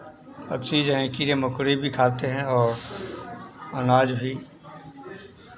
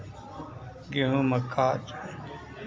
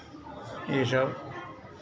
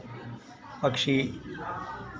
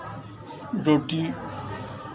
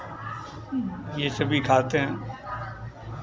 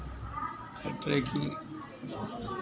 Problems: none marked